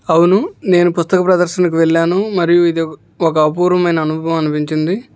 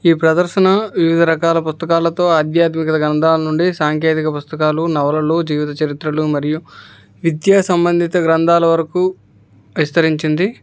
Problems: background conversations at intervals